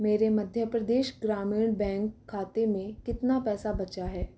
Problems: none marked